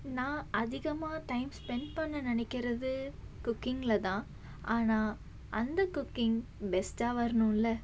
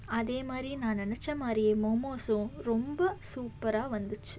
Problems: background sounds at intervals